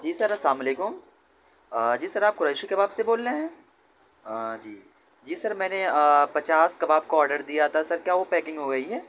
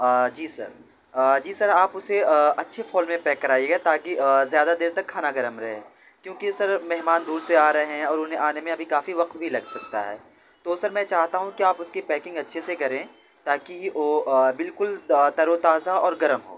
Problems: constant background noise